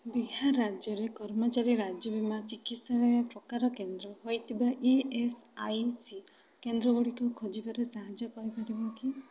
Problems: constant background noise, continuous background conversations